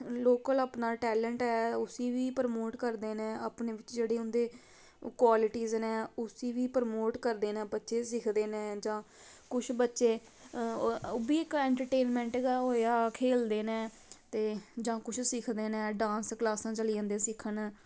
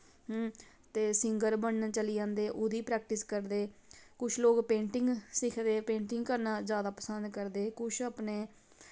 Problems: none marked